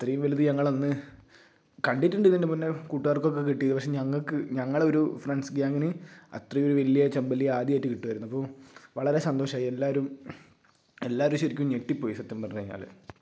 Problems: none marked